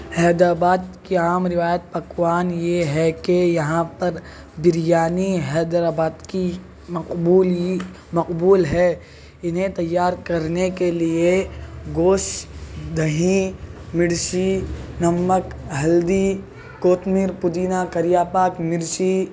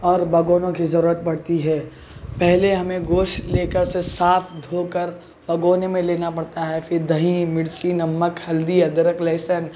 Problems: constant background noise